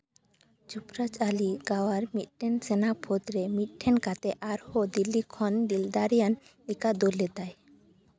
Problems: background sounds at intervals